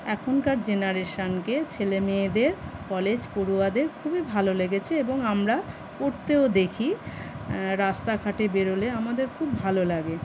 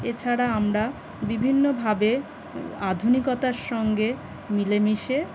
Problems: constant background noise